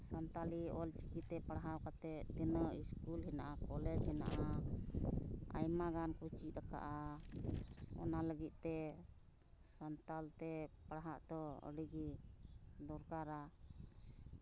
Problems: constant background noise